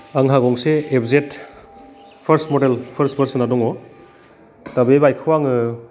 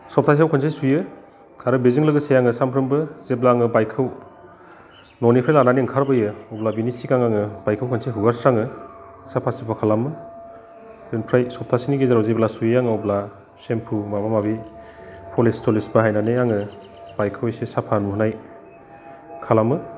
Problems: constant background noise